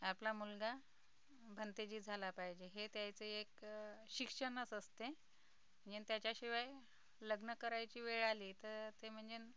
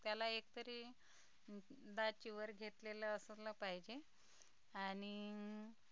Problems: background sounds at intervals, background conversations at intervals, low volume